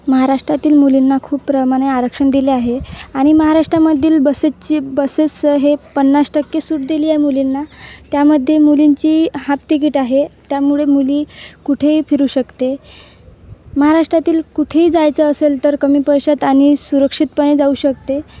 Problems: background sounds at intervals